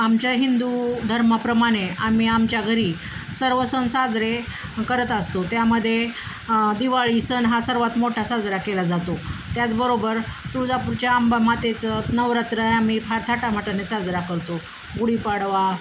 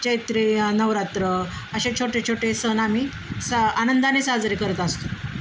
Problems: constant background noise, continuous background conversations